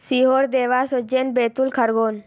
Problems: background sounds at intervals